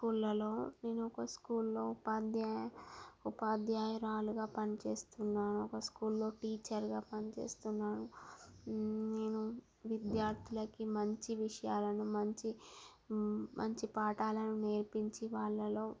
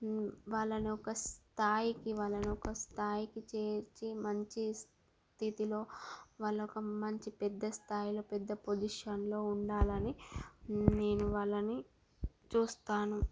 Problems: none marked